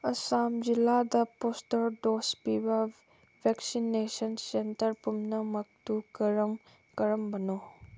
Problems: none marked